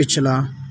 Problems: background sounds at intervals